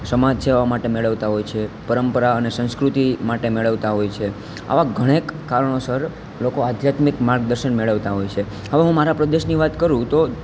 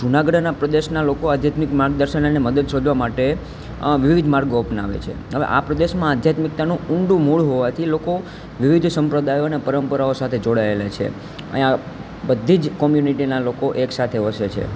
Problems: constant background noise